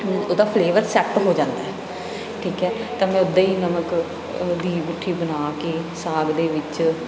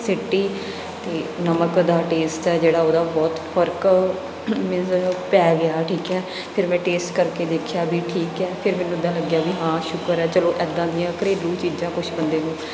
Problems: background sounds at intervals